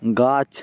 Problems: none marked